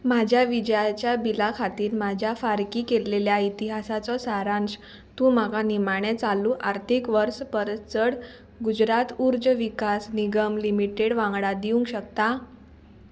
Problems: constant background noise